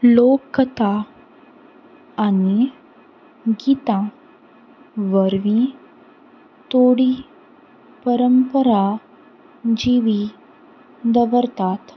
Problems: constant background noise